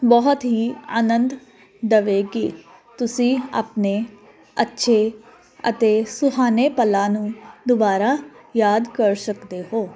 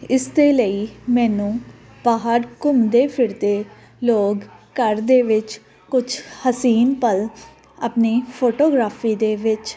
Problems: none marked